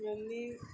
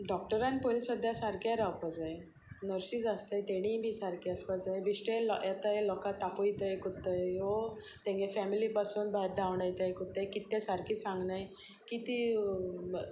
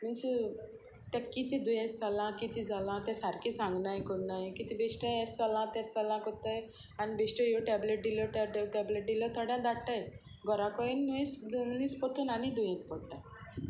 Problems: constant background noise